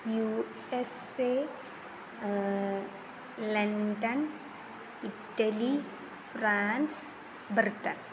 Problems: constant background noise